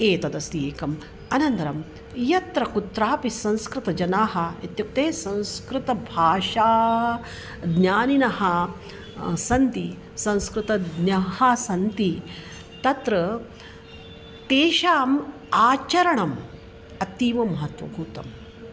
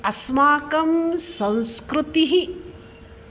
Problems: constant background noise